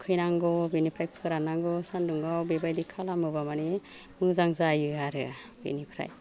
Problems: low volume